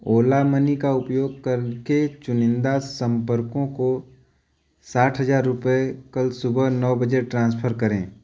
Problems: none marked